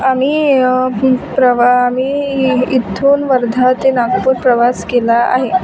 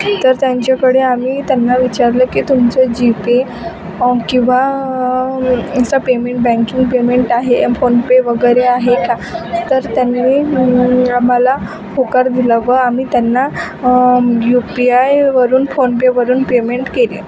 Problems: constant background noise, continuous background conversations